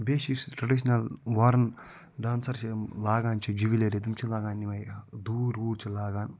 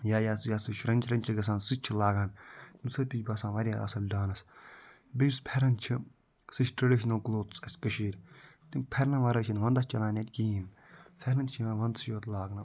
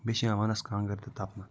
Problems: none marked